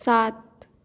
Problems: constant background noise, echo